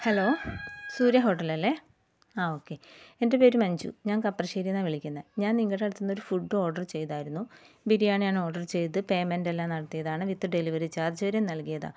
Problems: background sounds at intervals